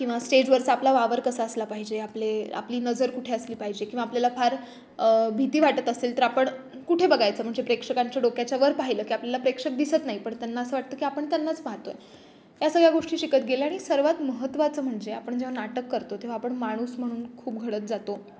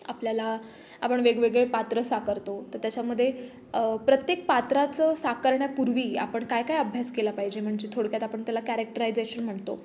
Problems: background sounds at intervals